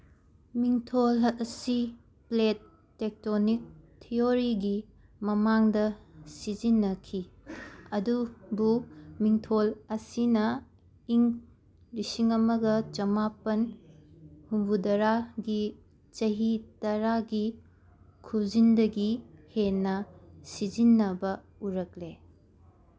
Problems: none marked